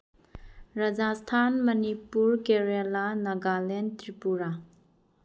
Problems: none marked